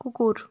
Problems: none marked